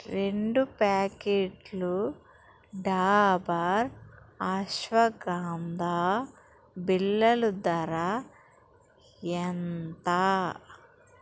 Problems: background sounds at intervals